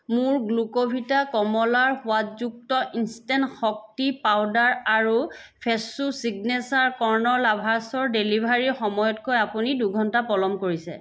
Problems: background sounds at intervals